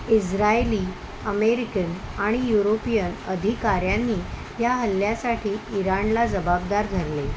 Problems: constant background noise